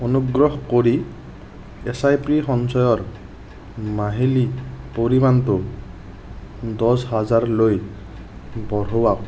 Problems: constant background noise